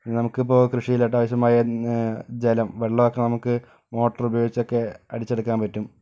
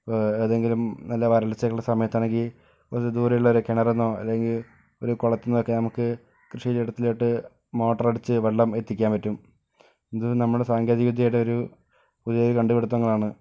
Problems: none marked